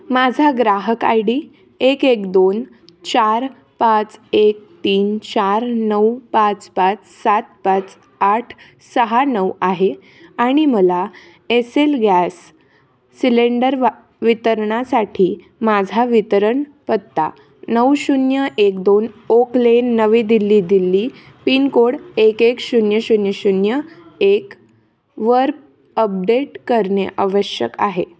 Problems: constant background noise, continuous background conversations